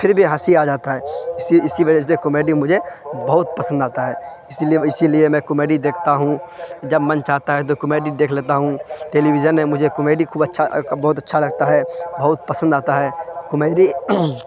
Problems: constant background noise